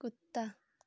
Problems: none marked